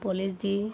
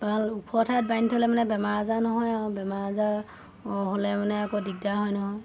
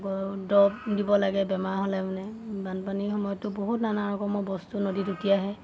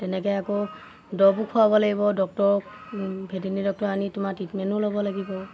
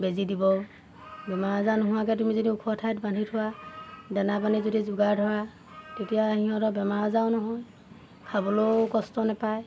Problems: constant background noise